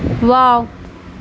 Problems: constant background noise